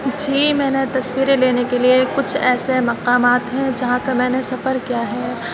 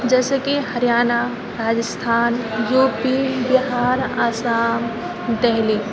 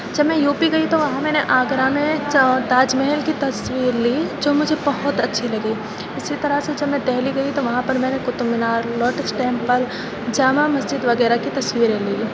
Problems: constant background noise, background conversations at intervals